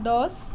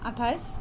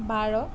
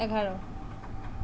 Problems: constant background noise